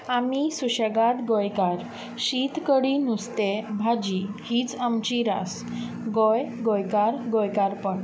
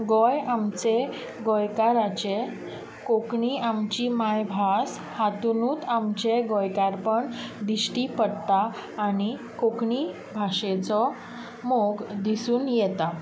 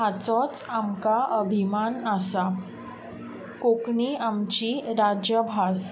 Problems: background sounds at intervals